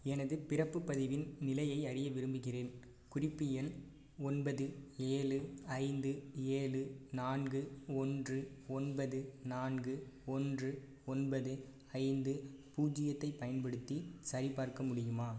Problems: low volume